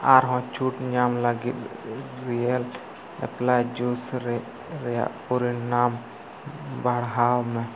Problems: constant background noise